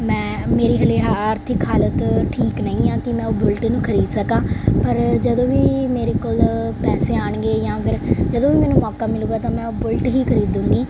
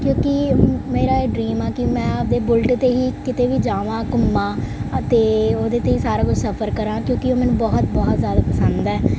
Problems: none marked